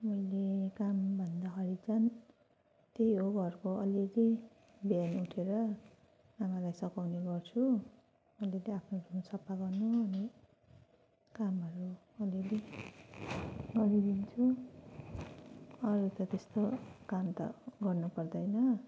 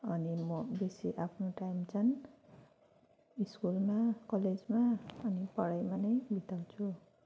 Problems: none marked